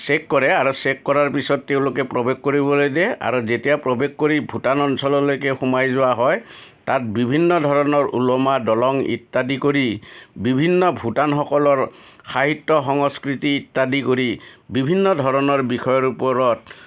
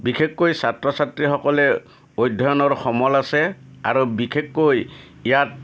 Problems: none marked